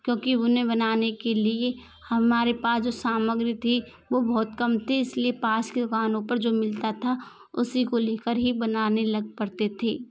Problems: constant background noise